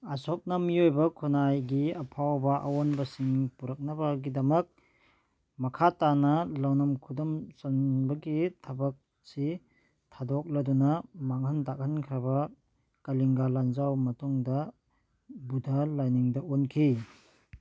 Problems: background sounds at intervals